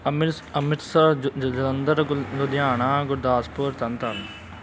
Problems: none marked